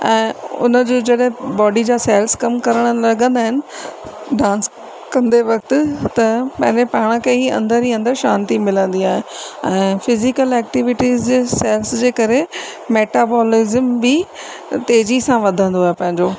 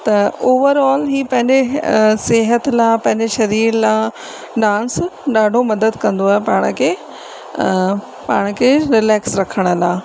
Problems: constant background noise, echo